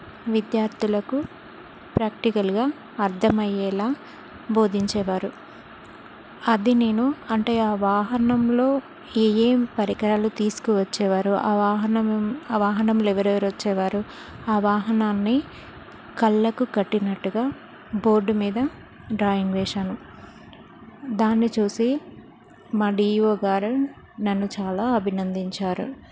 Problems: constant background noise